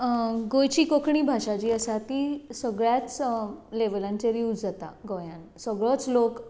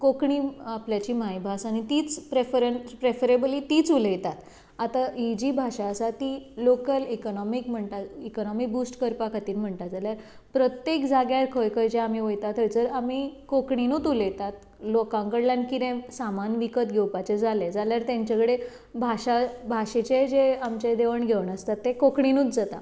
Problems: none marked